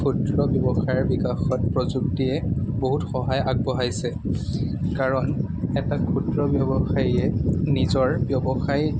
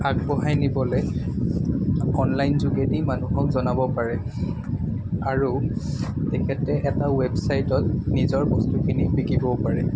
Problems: constant background noise